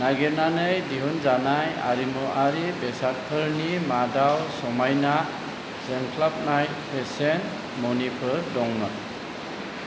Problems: constant background noise